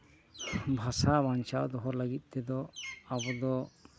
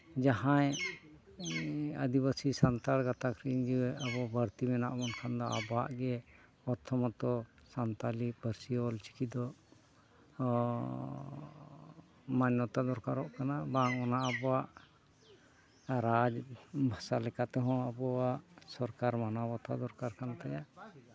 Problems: continuous background conversations